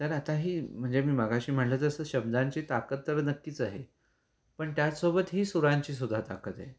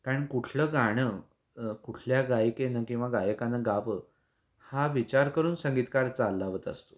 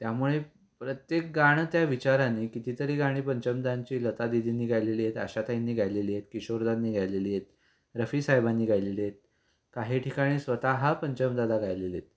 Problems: background sounds at intervals